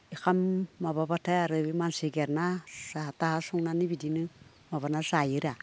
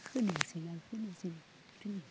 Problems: none marked